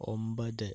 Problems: low volume